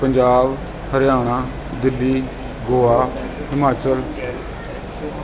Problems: continuous background conversations